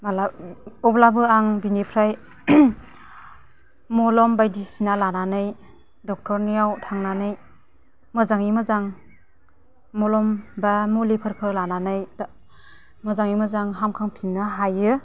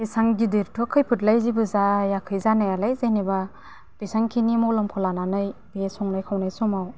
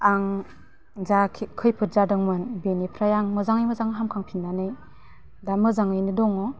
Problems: none marked